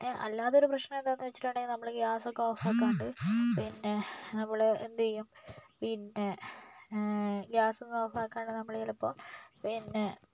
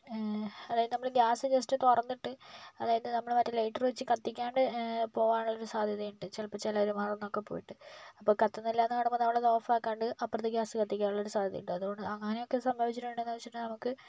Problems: low volume